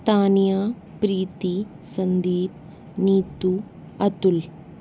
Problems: constant background noise